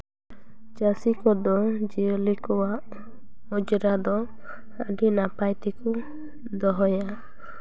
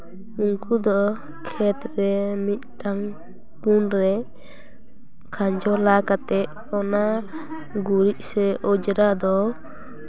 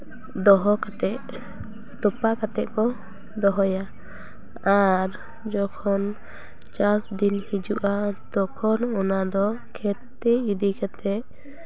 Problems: constant background noise, background conversations at intervals